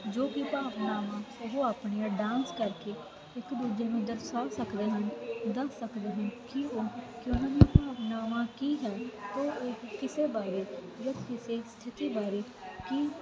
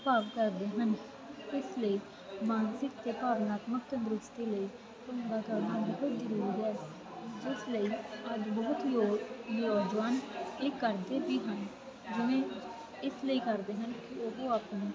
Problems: constant background noise